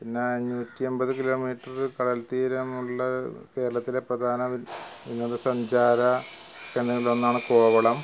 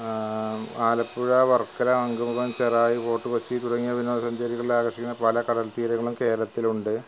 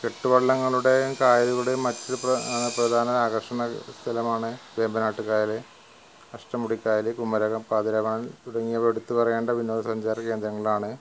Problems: background sounds at intervals, low volume